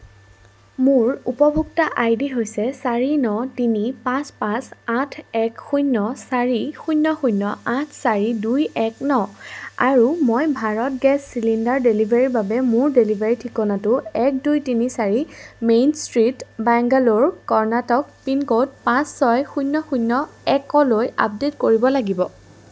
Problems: background sounds at intervals